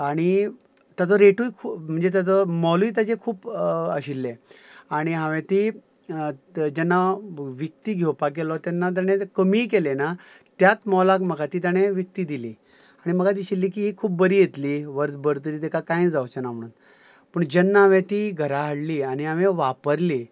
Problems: none marked